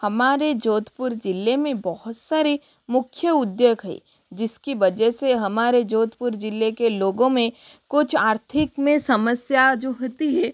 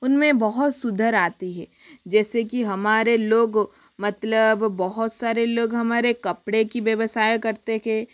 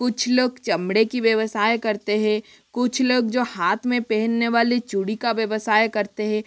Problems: constant background noise